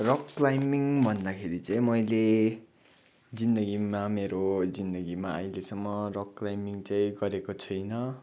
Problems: background sounds at intervals